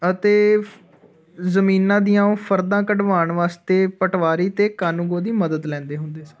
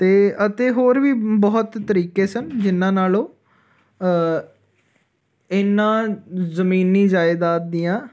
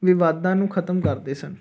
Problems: none marked